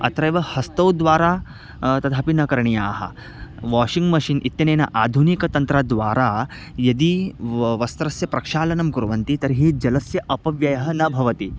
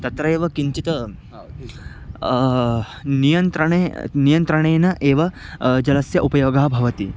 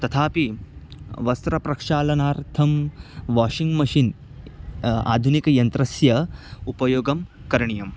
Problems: constant background noise, background conversations at intervals